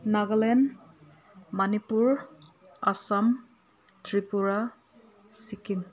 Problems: constant background noise